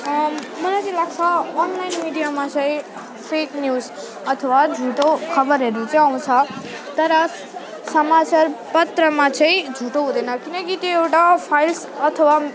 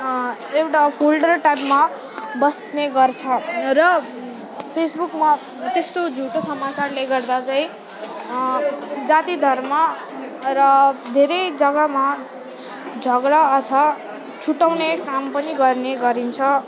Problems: constant background noise, continuous background conversations